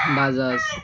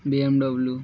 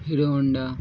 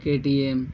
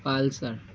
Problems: none marked